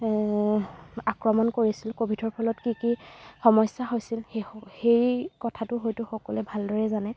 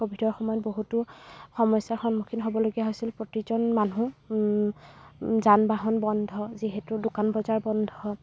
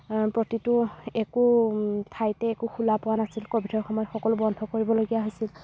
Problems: background sounds at intervals